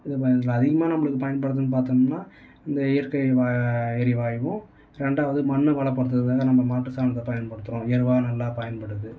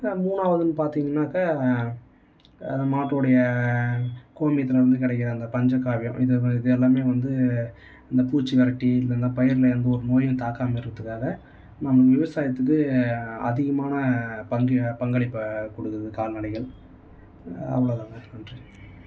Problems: none marked